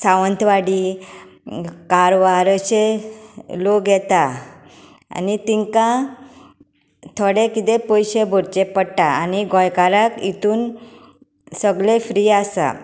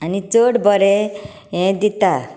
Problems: constant background noise